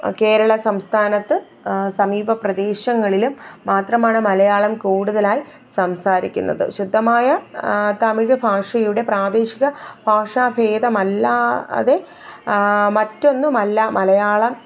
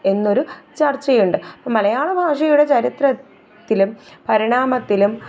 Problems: none marked